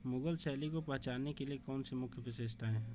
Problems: constant background noise